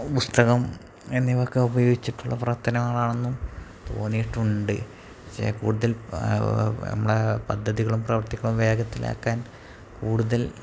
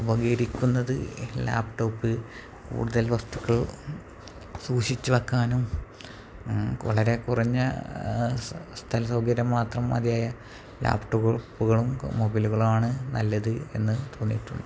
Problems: constant background noise, low volume